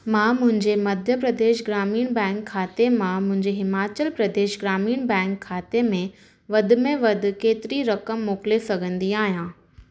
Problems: none marked